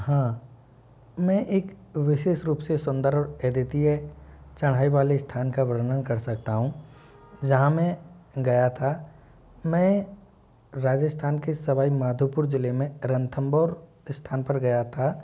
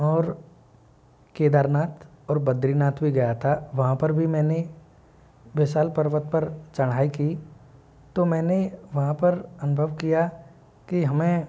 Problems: low volume